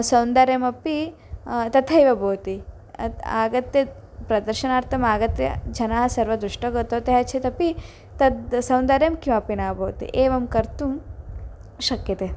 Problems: none marked